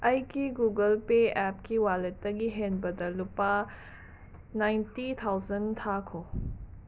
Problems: constant background noise